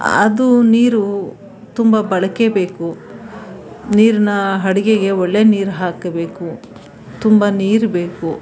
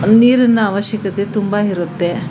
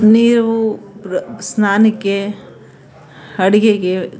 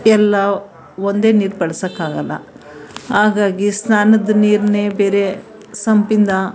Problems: background sounds at intervals